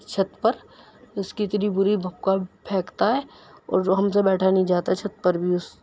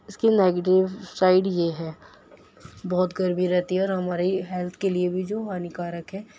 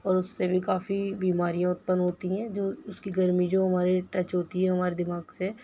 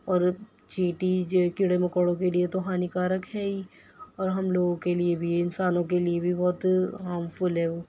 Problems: none marked